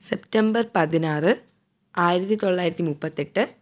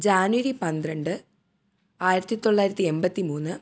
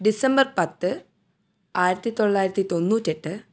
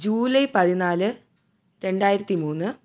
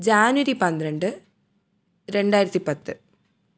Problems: low volume